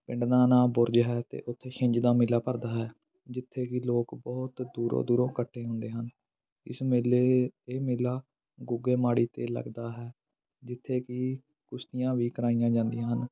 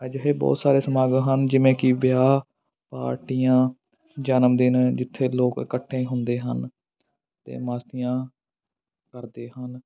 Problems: background sounds at intervals, continuous background conversations